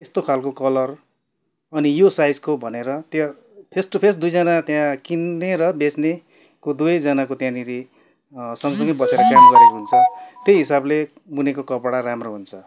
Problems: none marked